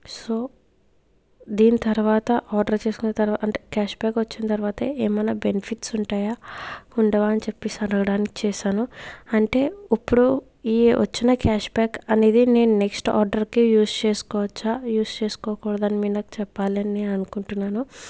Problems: background sounds at intervals